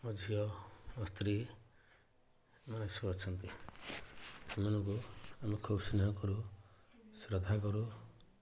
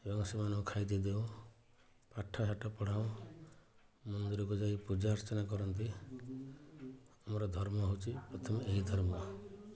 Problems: none marked